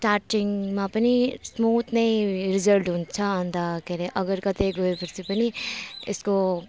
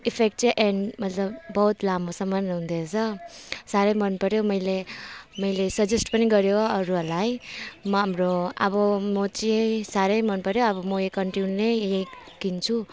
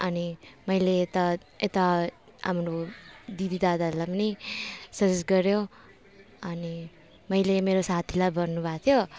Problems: constant background noise